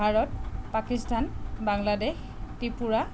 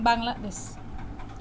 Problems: background conversations at intervals